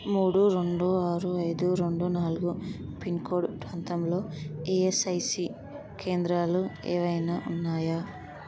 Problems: constant background noise, low volume